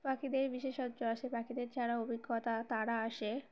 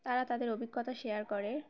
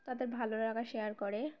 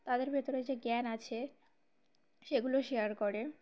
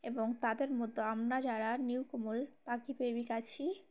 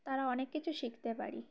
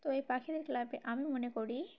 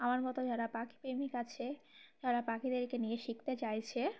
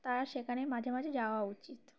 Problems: constant background noise